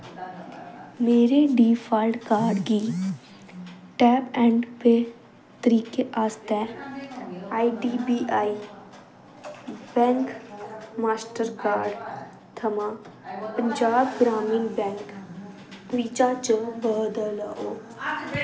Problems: constant background noise